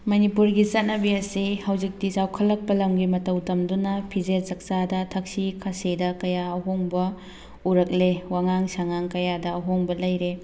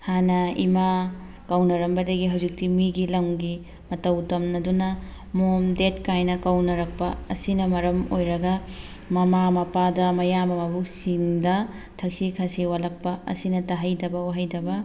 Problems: constant background noise